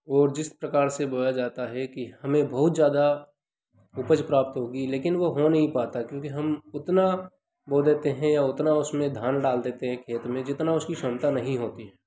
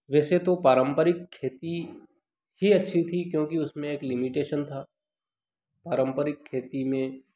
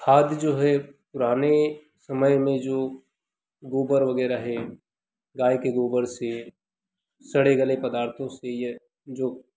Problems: none marked